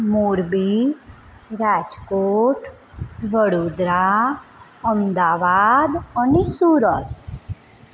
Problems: constant background noise